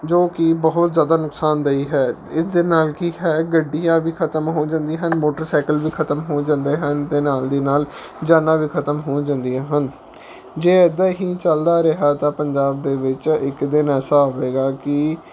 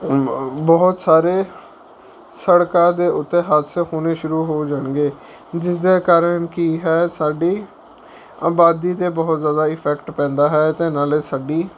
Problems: none marked